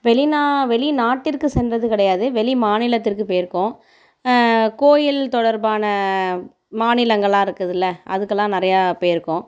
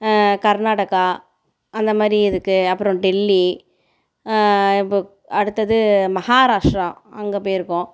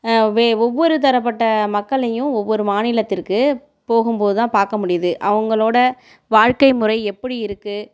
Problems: none marked